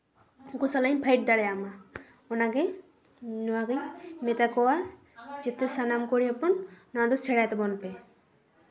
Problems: echo